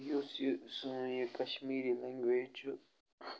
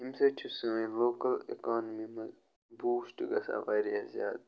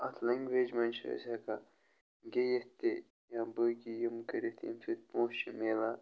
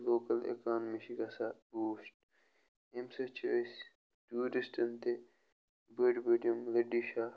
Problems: none marked